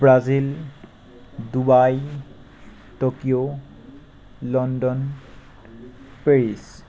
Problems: constant background noise